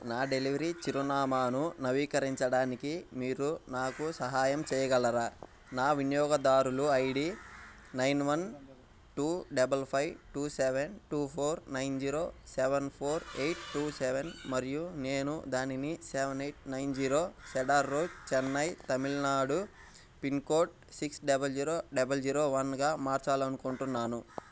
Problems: background sounds at intervals